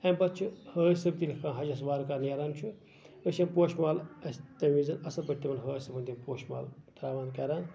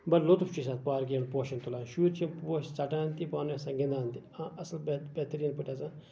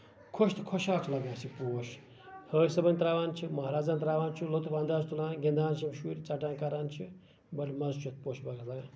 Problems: none marked